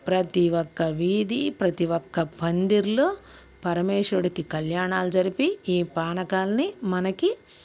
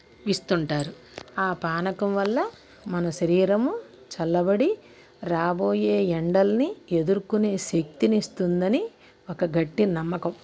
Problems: constant background noise, background conversations at intervals